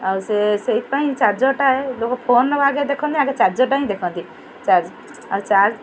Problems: constant background noise, continuous background conversations